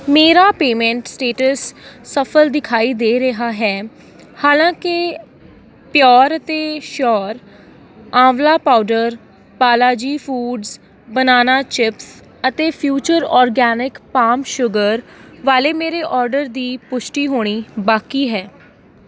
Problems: constant background noise